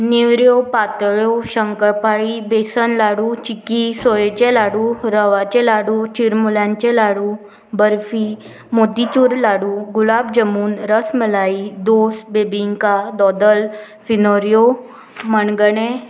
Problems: constant background noise